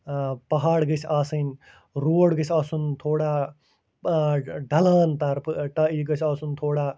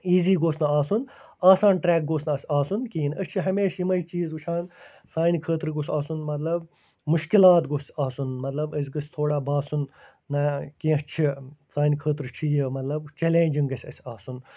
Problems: none marked